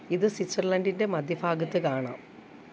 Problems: background sounds at intervals